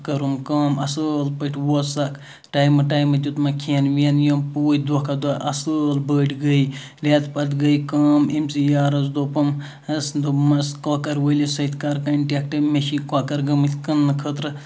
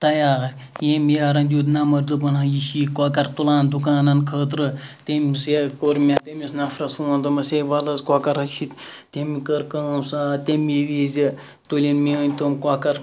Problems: background sounds at intervals